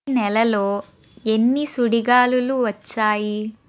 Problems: constant background noise